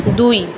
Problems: constant background noise